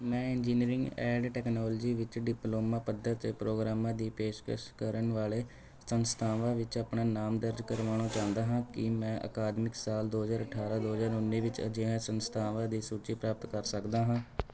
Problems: constant background noise, continuous background conversations